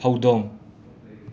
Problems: constant background noise, background conversations at intervals